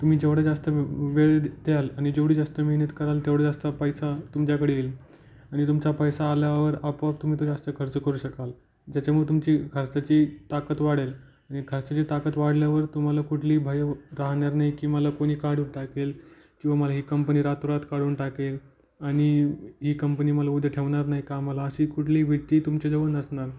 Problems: background sounds at intervals